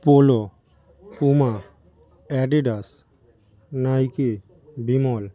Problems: none marked